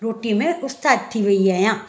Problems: none marked